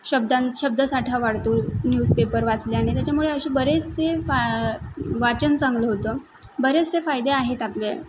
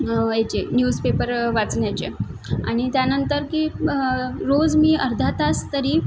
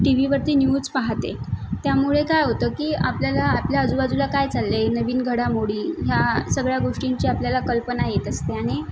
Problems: constant background noise